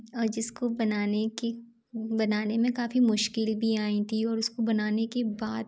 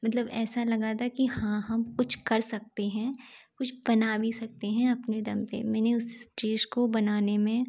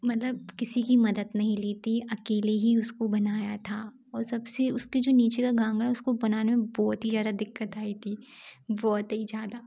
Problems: none marked